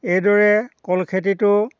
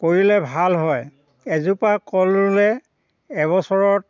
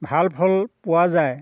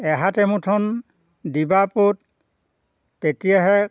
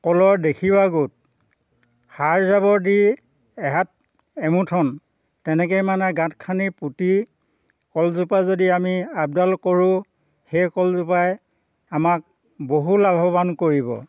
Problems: none marked